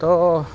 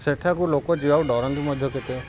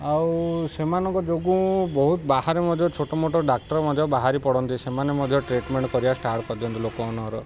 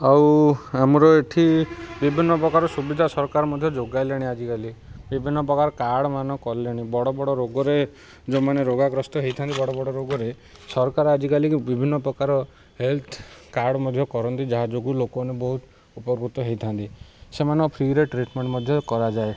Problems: none marked